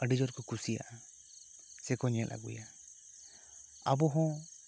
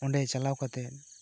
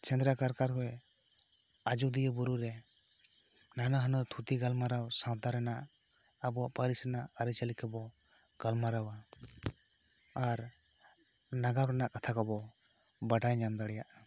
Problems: none marked